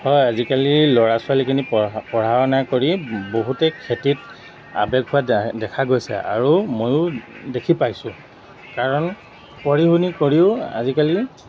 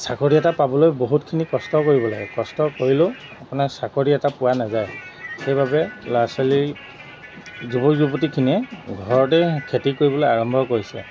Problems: constant background noise